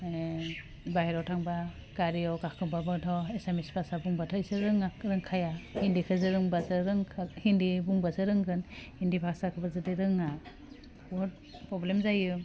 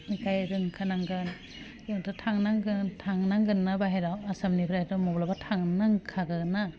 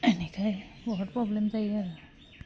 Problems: none marked